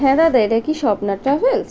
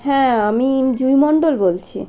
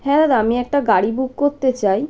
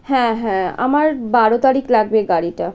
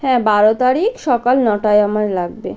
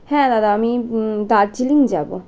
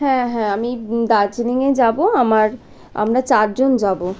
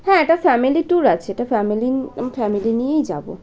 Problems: none marked